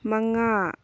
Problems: background sounds at intervals